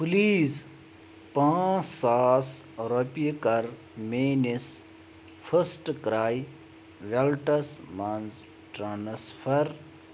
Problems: none marked